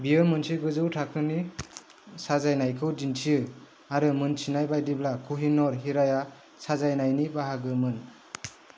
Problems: none marked